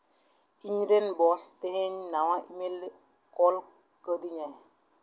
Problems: echo